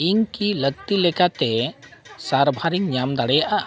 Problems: background sounds at intervals